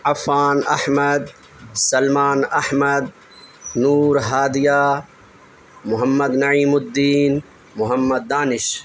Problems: constant background noise